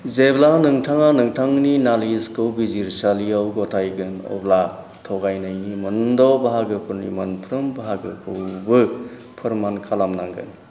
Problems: constant background noise